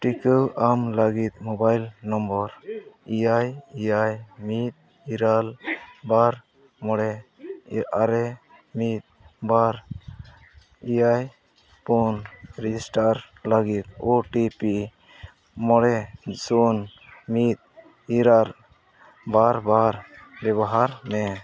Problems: constant background noise, continuous background conversations